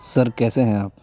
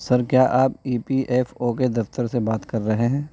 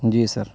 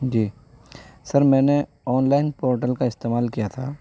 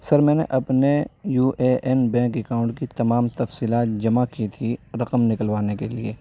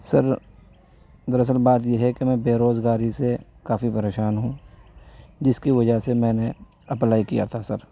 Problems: background sounds at intervals, background conversations at intervals